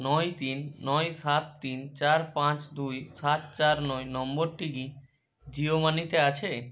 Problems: none marked